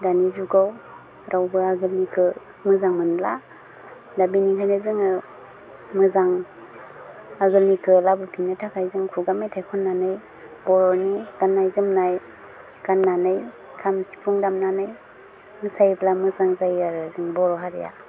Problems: constant background noise